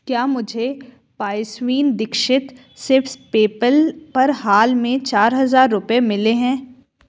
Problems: constant background noise